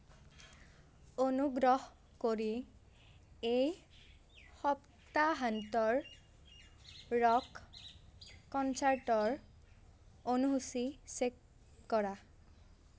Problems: none marked